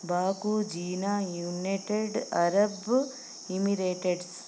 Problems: none marked